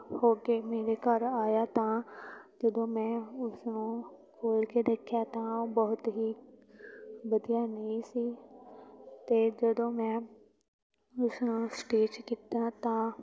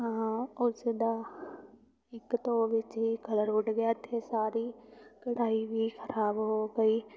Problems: background sounds at intervals, continuous background conversations